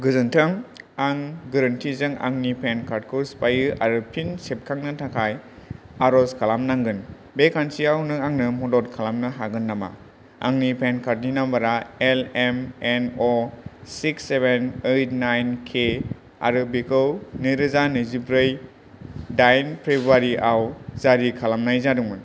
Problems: none marked